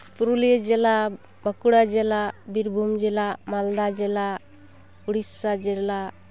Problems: background sounds at intervals